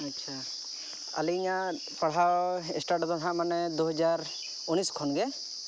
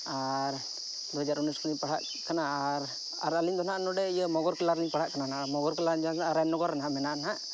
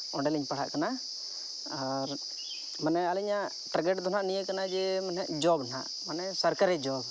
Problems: none marked